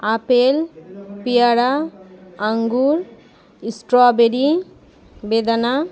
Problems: constant background noise, continuous background conversations